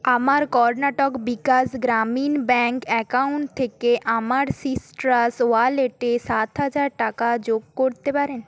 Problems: background sounds at intervals